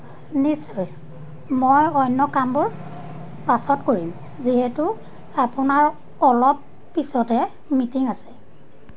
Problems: none marked